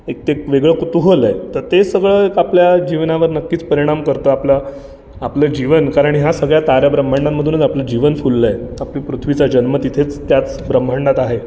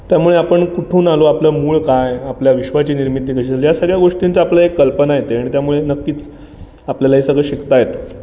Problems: none marked